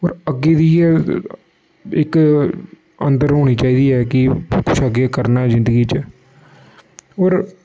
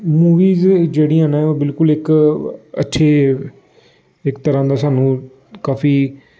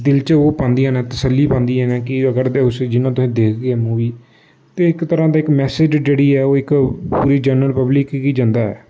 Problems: constant background noise